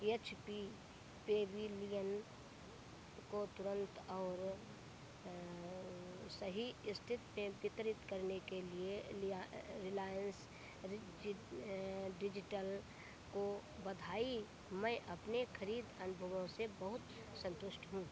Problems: none marked